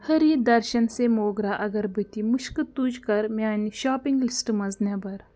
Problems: none marked